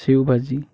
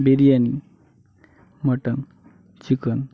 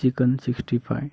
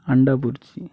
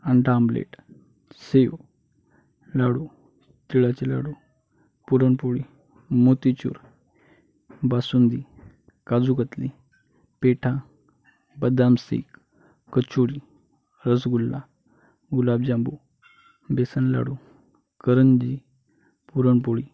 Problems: constant background noise